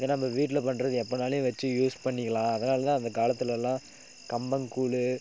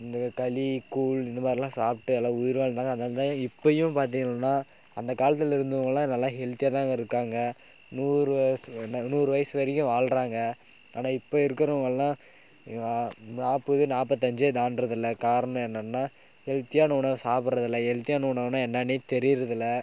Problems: none marked